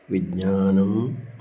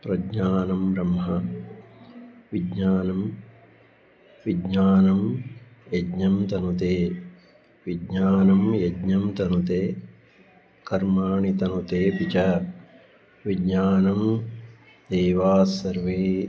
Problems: background sounds at intervals